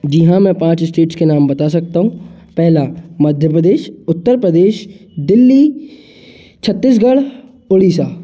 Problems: constant background noise